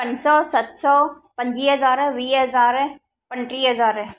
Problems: echo